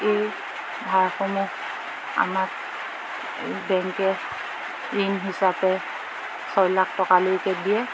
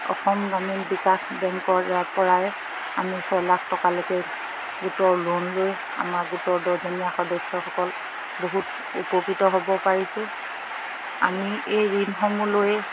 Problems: constant background noise, background conversations at intervals